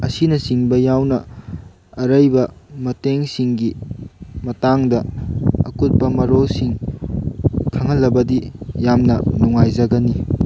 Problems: background sounds at intervals